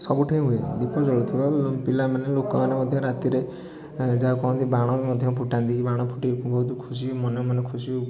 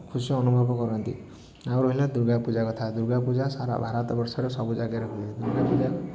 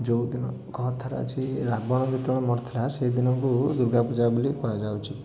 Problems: background sounds at intervals, continuous background conversations